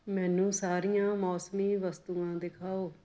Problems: none marked